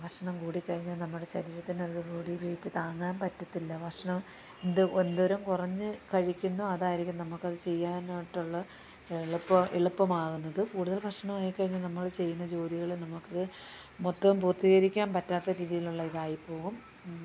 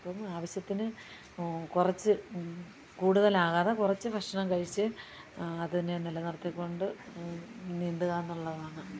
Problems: low volume